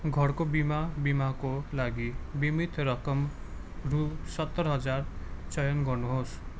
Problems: background sounds at intervals